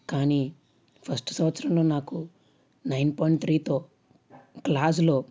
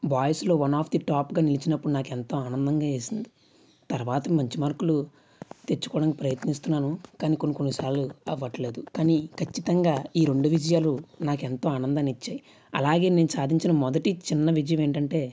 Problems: none marked